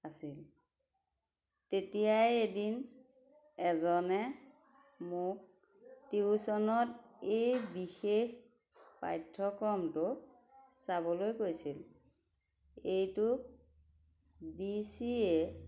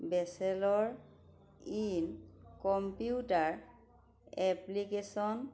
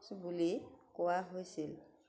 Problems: background conversations at intervals